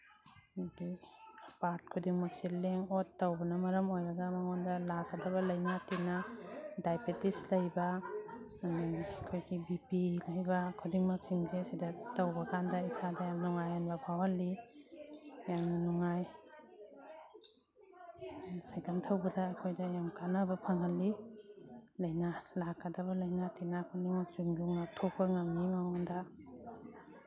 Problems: background sounds at intervals, background conversations at intervals